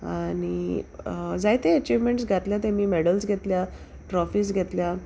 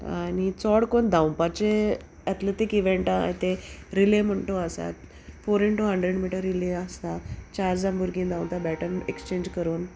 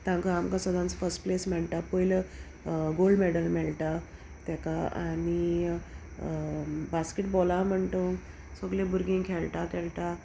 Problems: background conversations at intervals